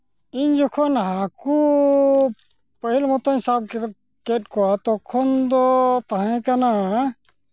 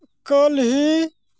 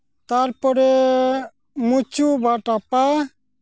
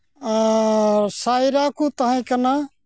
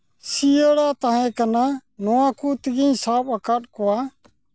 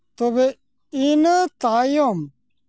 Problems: background sounds at intervals